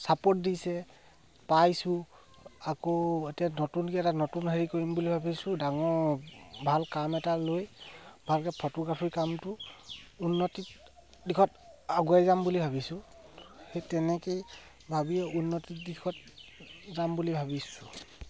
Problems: constant background noise